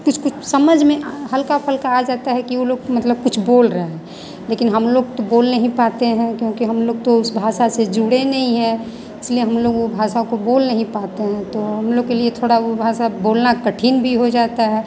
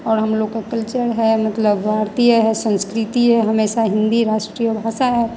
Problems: constant background noise